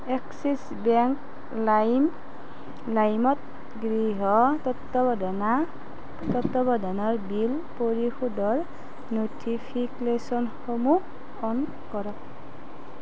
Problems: constant background noise